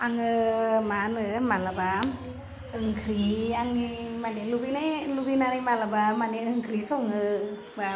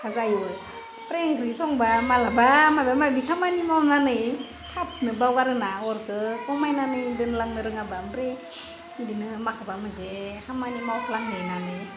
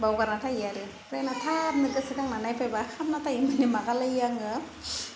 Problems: constant background noise